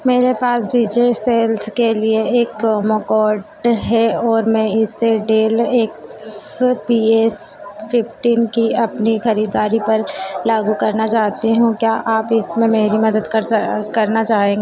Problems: constant background noise, echo